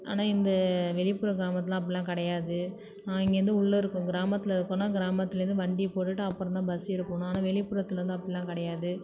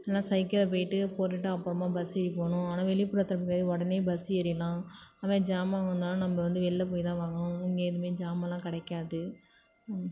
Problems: none marked